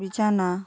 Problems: none marked